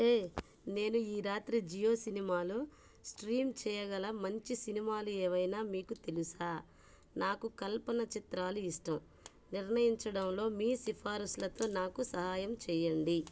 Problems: background sounds at intervals